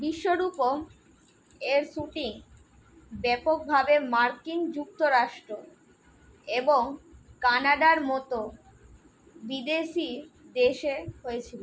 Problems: constant background noise